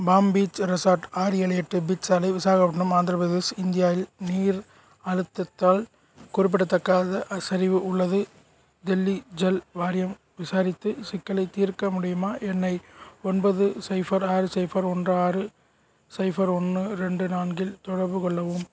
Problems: none marked